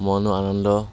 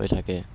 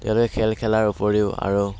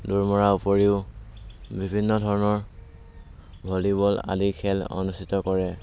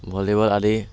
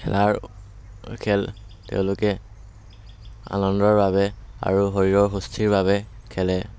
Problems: none marked